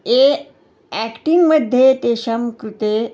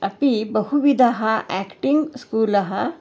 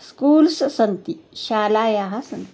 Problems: constant background noise